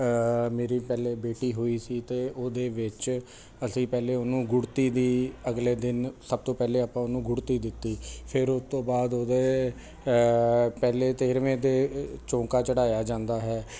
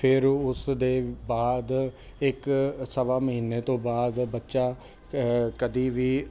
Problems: constant background noise